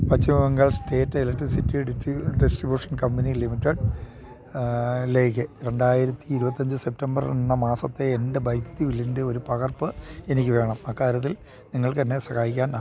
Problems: low volume